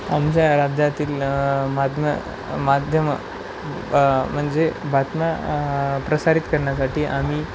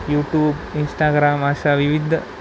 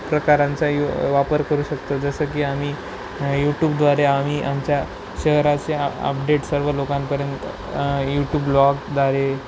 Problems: none marked